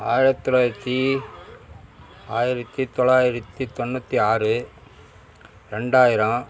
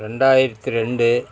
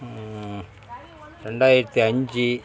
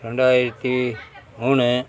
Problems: constant background noise, continuous background conversations